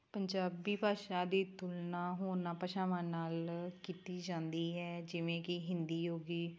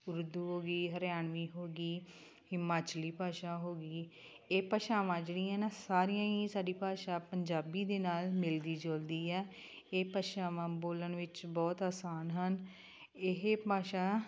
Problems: constant background noise